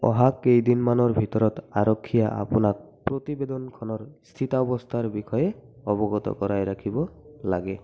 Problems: constant background noise, continuous background conversations, echo